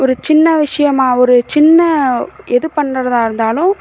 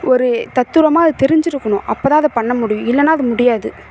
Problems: none marked